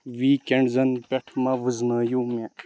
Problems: constant background noise